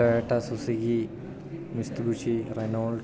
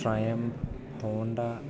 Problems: none marked